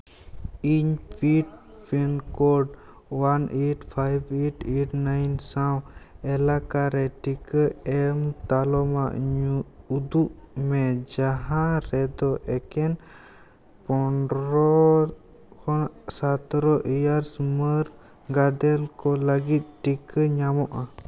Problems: background sounds at intervals, background conversations at intervals